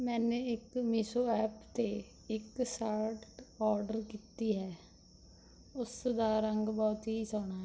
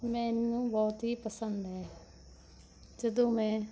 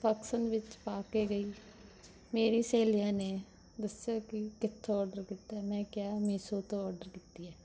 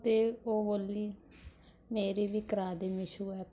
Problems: background sounds at intervals